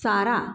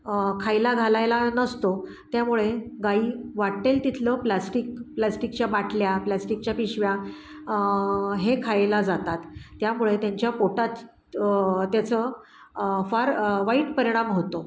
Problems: background sounds at intervals